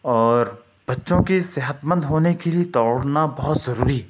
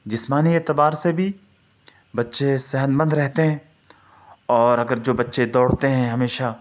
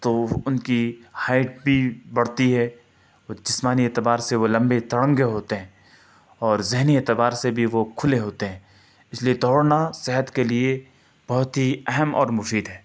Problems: none marked